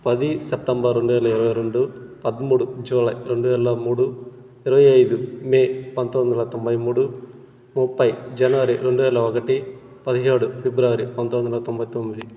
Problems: constant background noise